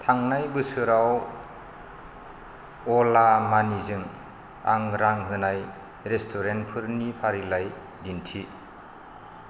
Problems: none marked